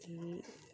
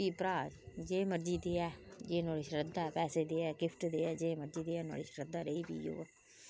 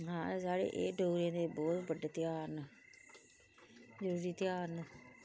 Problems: low volume